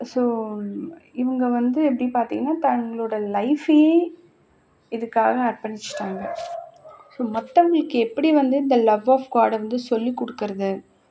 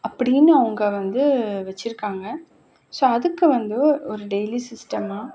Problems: background sounds at intervals